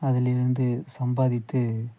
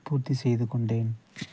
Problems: background sounds at intervals, low volume